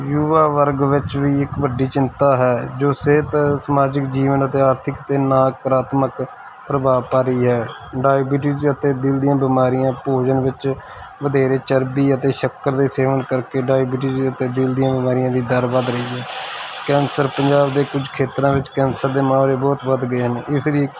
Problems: constant background noise